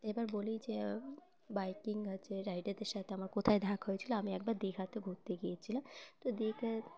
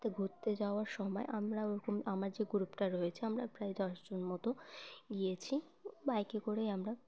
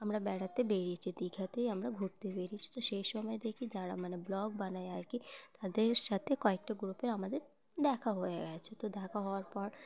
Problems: constant background noise, background conversations at intervals